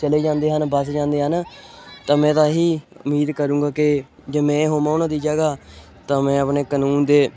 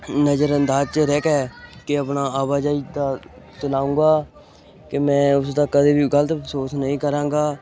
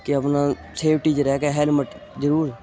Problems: background sounds at intervals